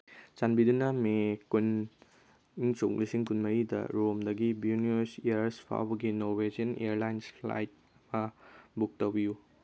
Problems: none marked